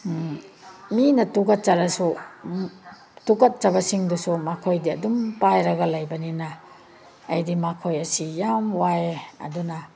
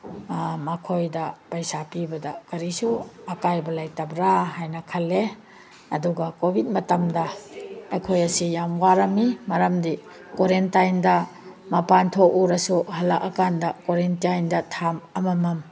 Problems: background conversations at intervals